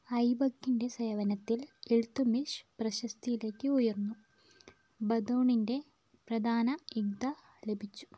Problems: low volume